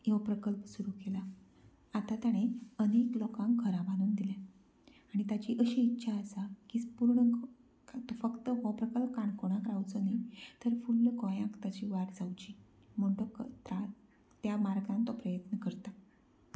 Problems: low volume